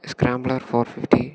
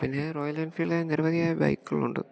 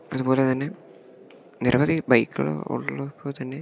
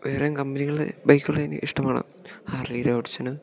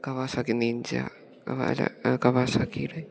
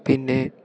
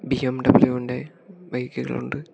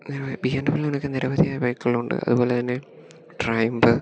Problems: none marked